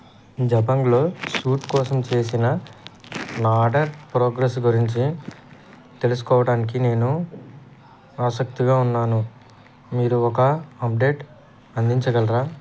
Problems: constant background noise, background conversations at intervals